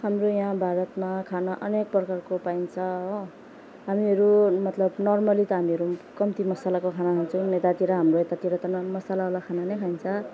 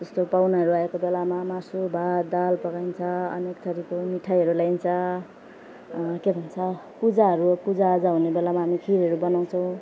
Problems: background sounds at intervals, background conversations at intervals